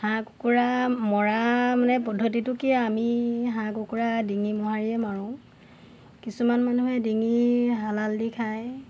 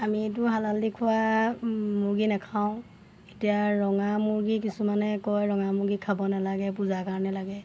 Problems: constant background noise, background conversations at intervals